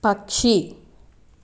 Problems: constant background noise